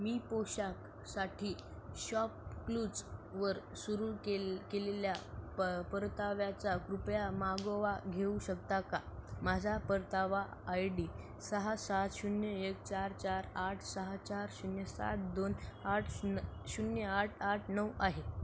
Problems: none marked